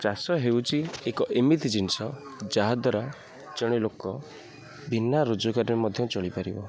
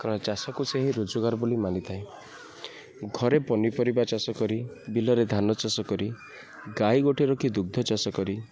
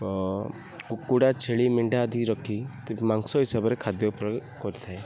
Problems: background sounds at intervals, low volume